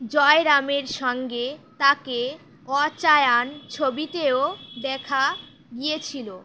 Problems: constant background noise